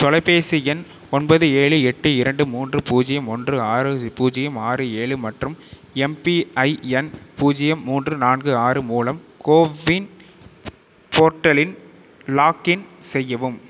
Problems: none marked